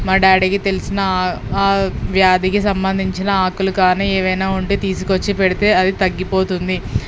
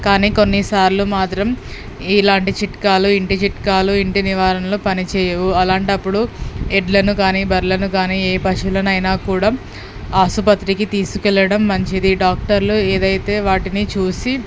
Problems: background sounds at intervals